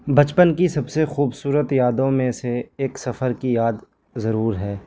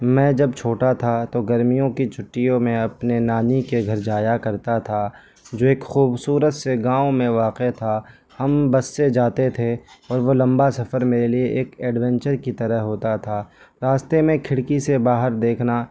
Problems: constant background noise